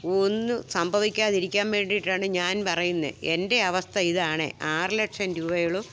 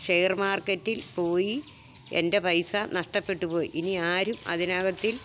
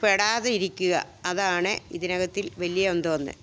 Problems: background sounds at intervals